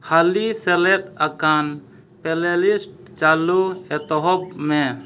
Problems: none marked